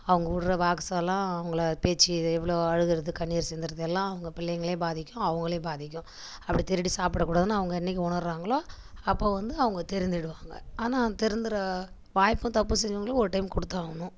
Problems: none marked